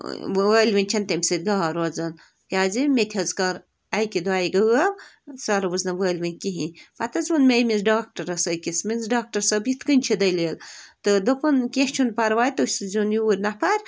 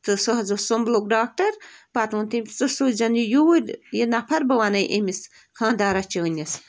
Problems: constant background noise